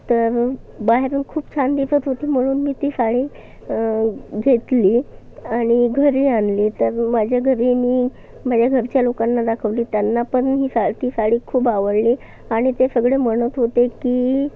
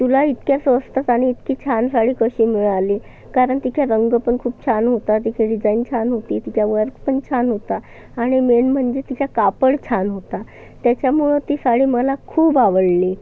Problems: constant background noise, background conversations at intervals